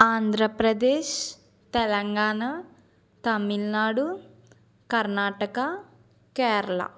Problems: none marked